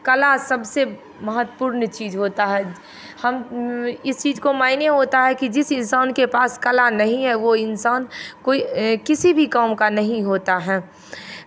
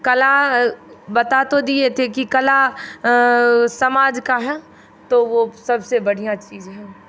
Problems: constant background noise